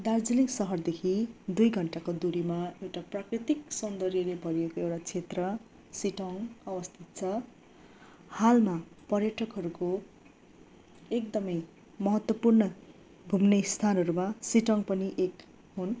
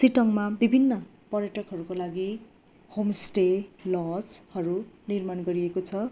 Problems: none marked